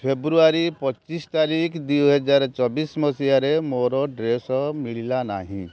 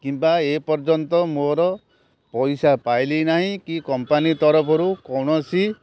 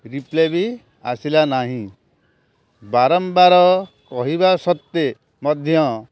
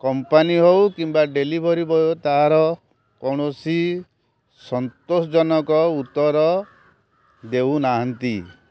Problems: none marked